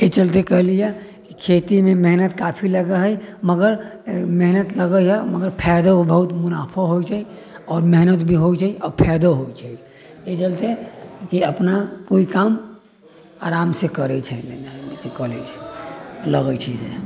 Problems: none marked